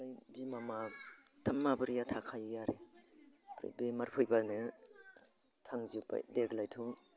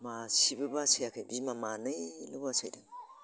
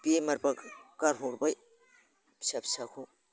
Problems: constant background noise